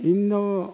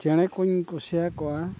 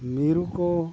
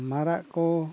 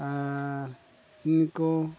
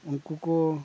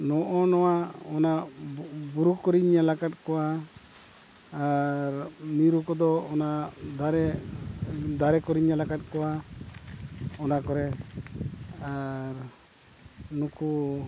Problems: background sounds at intervals, low volume